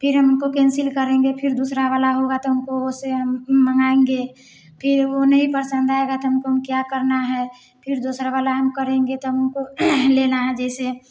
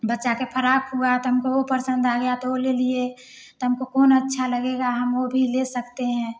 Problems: background sounds at intervals